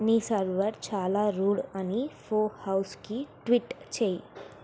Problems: constant background noise